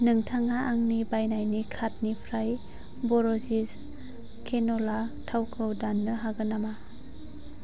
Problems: constant background noise